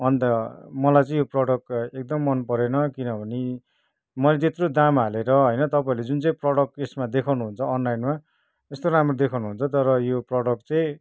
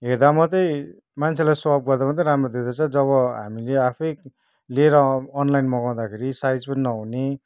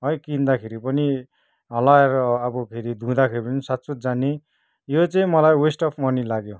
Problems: none marked